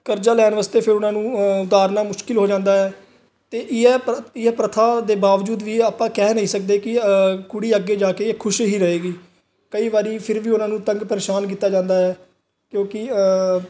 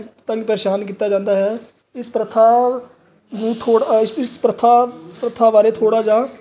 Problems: none marked